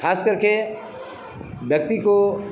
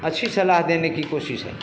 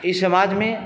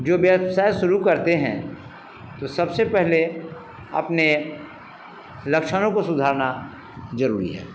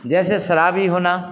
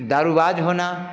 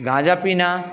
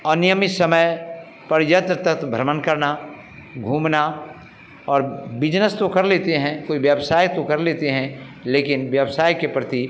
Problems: none marked